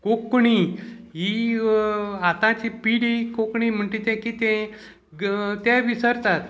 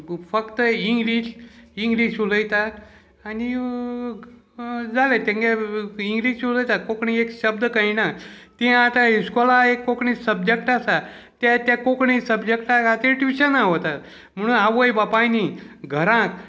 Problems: background conversations at intervals